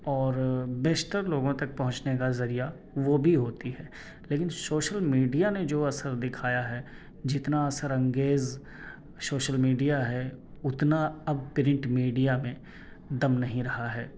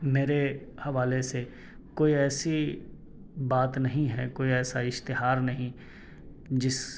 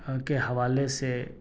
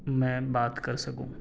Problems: none marked